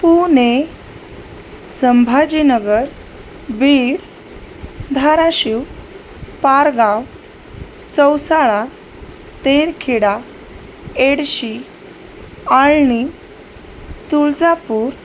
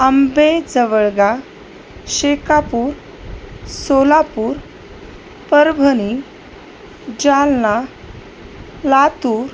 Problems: none marked